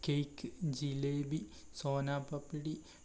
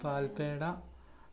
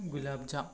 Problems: background conversations at intervals